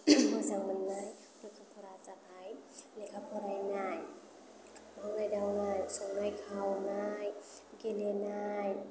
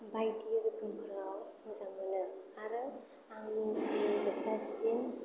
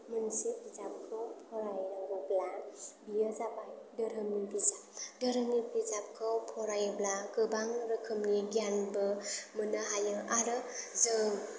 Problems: low volume